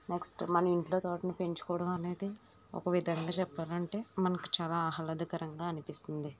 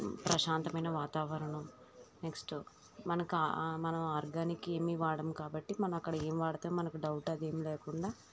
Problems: none marked